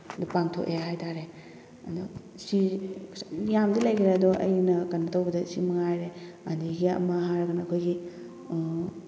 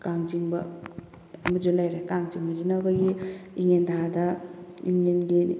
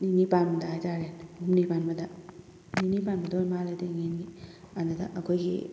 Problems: constant background noise